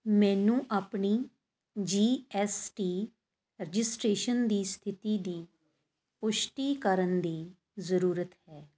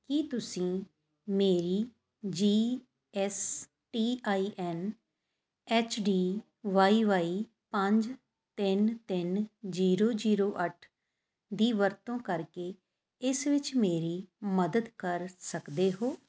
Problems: none marked